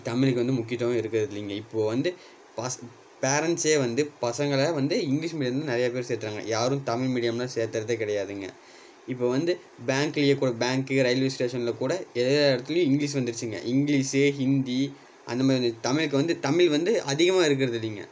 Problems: background sounds at intervals